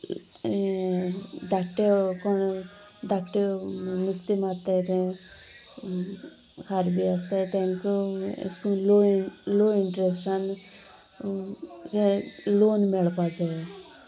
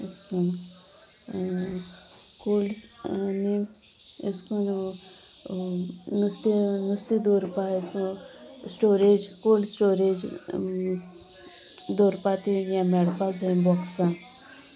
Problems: continuous background conversations